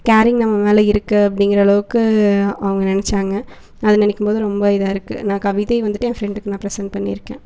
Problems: none marked